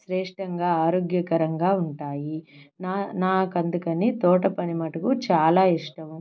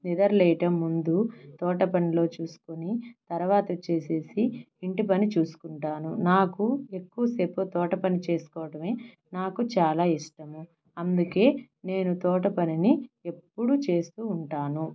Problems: none marked